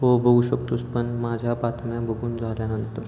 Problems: constant background noise